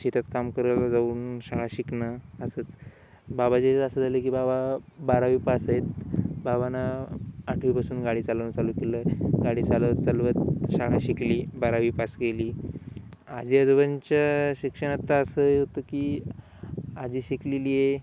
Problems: constant background noise